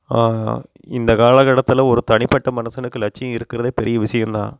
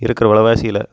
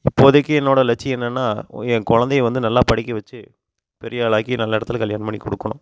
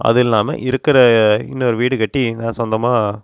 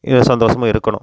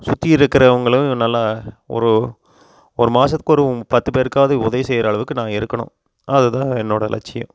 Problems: constant background noise